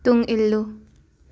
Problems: none marked